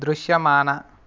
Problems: none marked